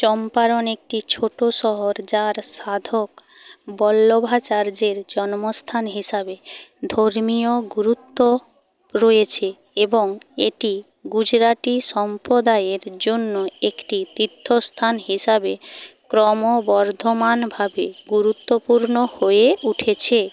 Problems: constant background noise